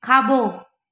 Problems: echo